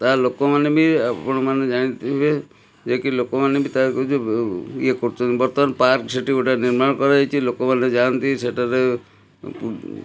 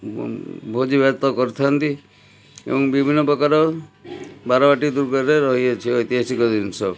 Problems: background sounds at intervals